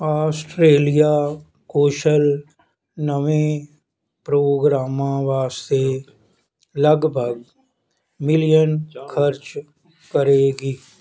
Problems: background conversations at intervals